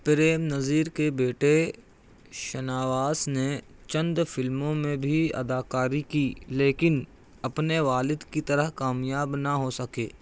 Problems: none marked